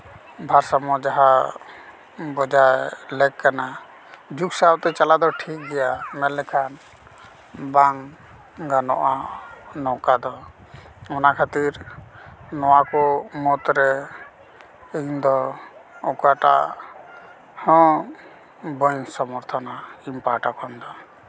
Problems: background sounds at intervals, continuous background conversations